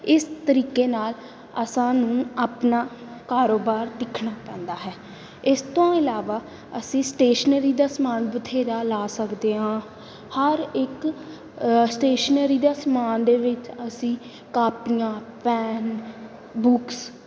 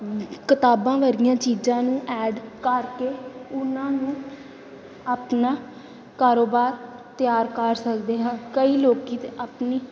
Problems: background sounds at intervals